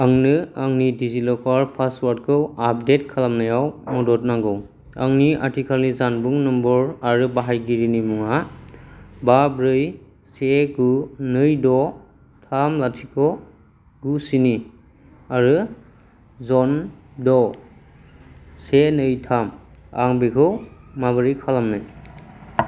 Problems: low volume